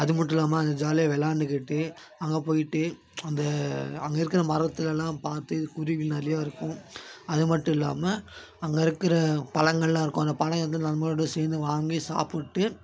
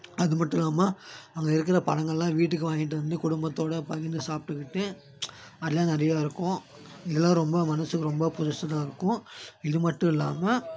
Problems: none marked